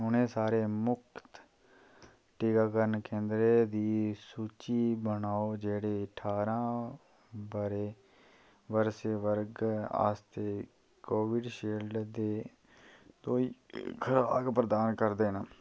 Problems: low volume